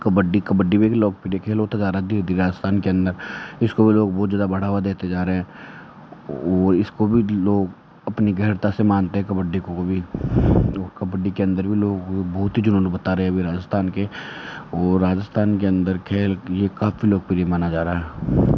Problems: background sounds at intervals